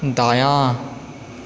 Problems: constant background noise